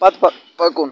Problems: constant background noise